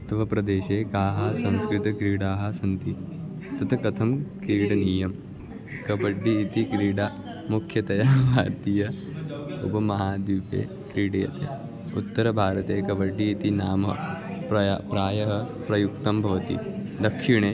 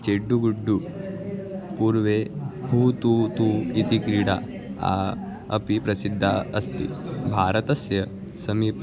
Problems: continuous background conversations